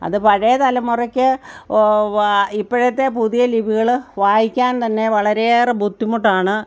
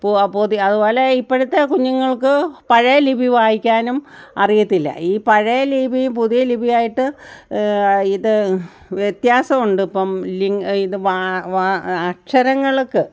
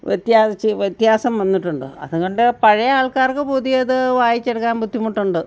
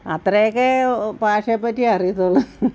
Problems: none marked